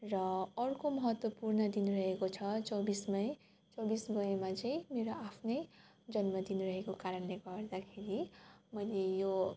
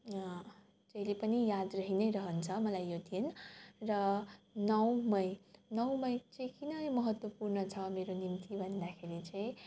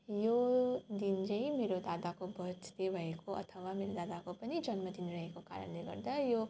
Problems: background sounds at intervals